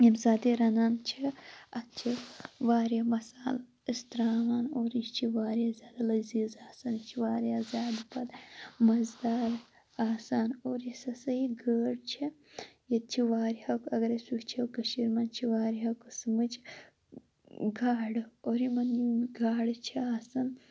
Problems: none marked